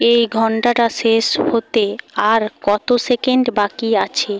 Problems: background sounds at intervals